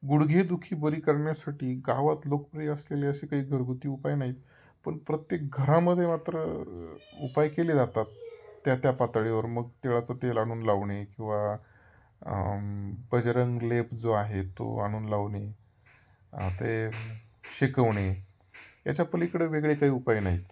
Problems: none marked